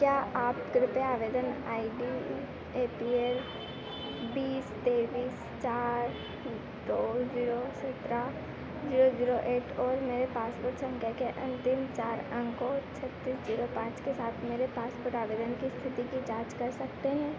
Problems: constant background noise